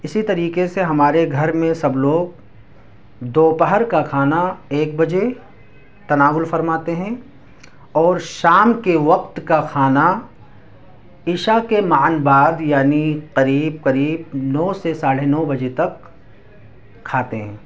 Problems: background sounds at intervals, background conversations at intervals